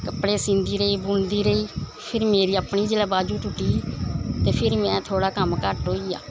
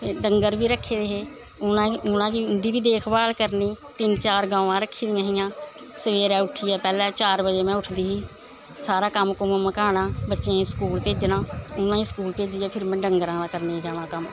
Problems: none marked